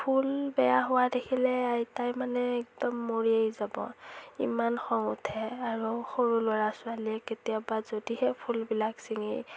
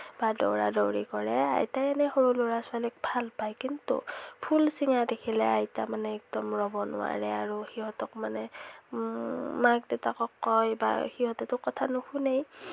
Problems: none marked